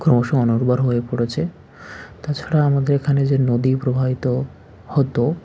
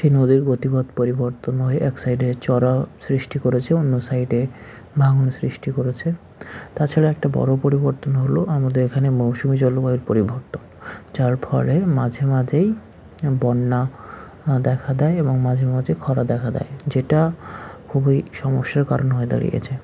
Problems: none marked